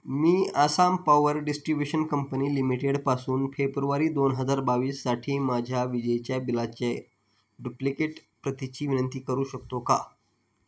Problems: background sounds at intervals